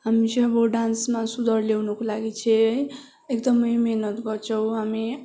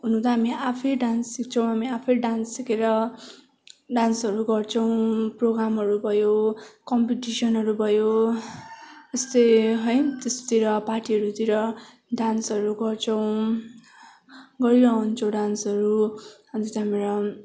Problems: constant background noise, continuous background conversations